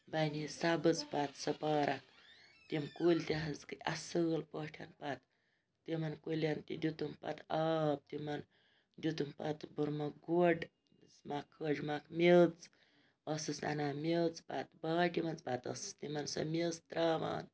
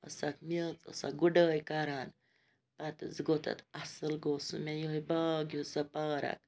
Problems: background sounds at intervals